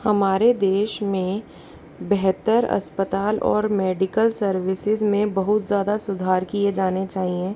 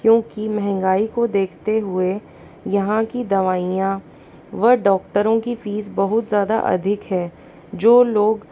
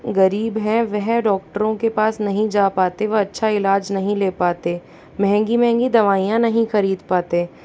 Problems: background sounds at intervals